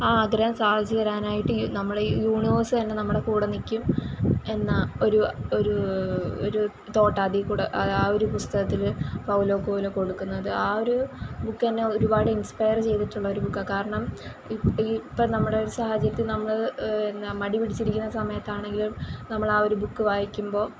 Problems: constant background noise